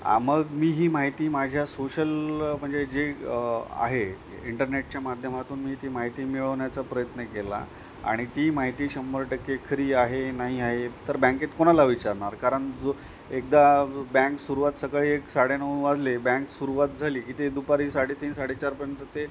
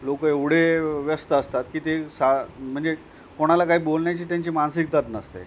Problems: none marked